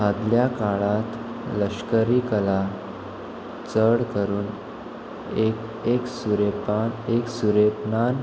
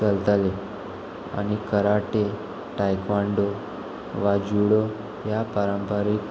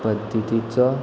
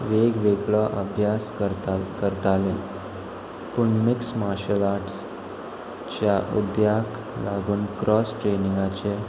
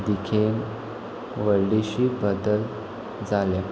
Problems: constant background noise